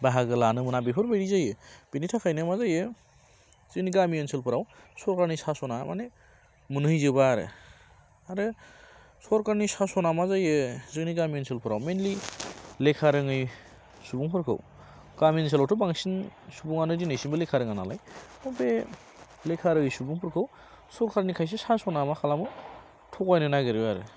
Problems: constant background noise